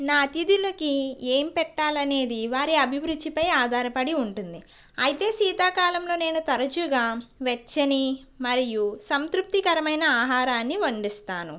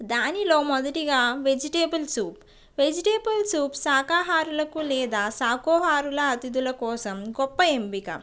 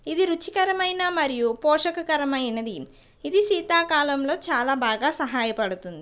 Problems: background sounds at intervals, background conversations at intervals